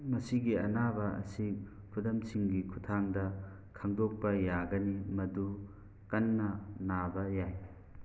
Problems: none marked